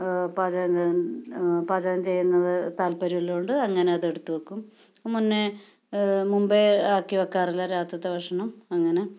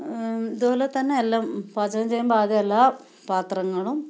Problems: none marked